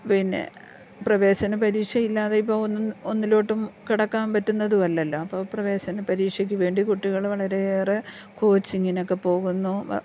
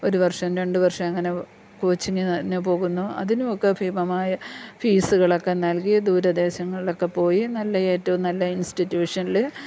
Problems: none marked